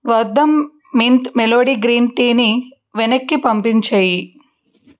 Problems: none marked